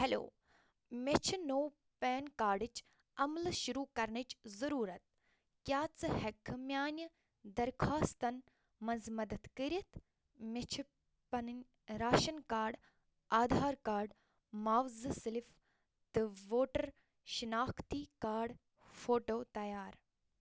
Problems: none marked